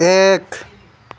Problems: constant background noise